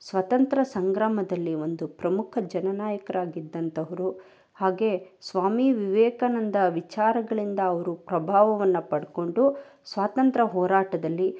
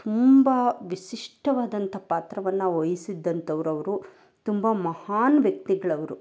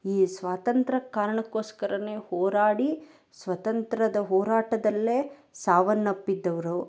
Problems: none marked